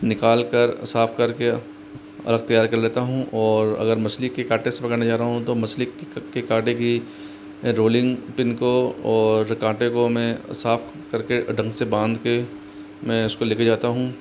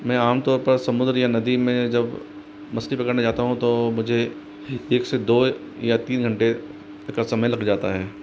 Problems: constant background noise